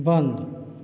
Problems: none marked